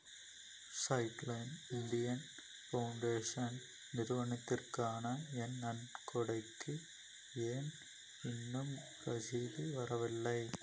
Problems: low volume